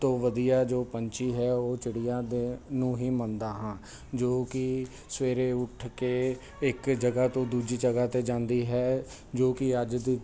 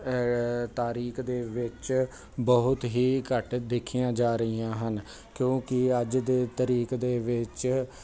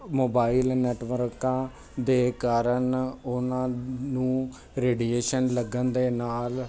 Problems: constant background noise